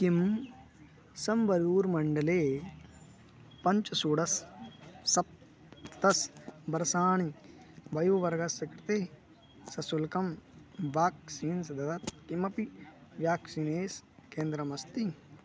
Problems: none marked